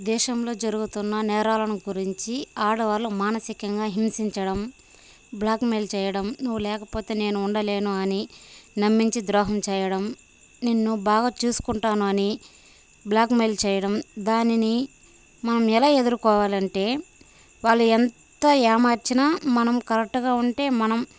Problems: none marked